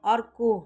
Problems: constant background noise